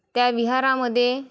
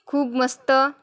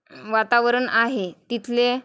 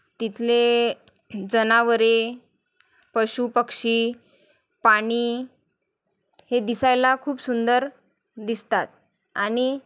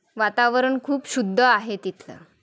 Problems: constant background noise, background conversations at intervals